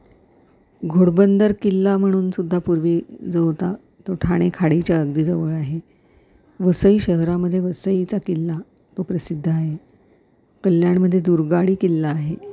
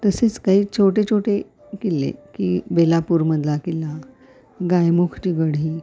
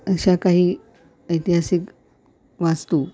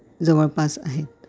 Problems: none marked